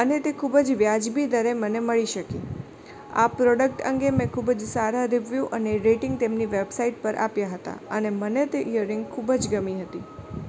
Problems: constant background noise, background conversations at intervals